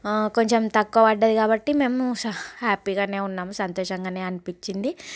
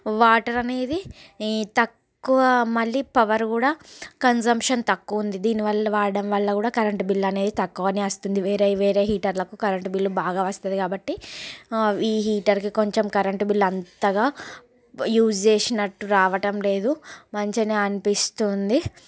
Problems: none marked